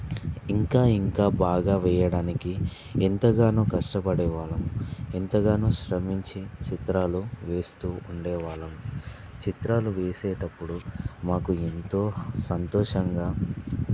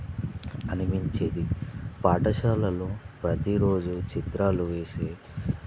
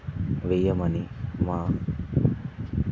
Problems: none marked